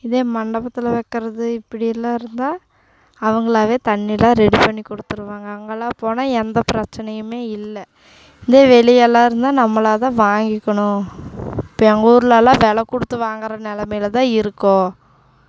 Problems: constant background noise